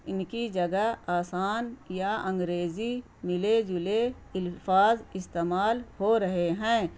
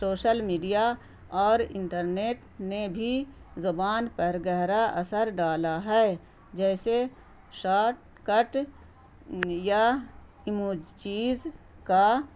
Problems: constant background noise